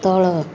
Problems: none marked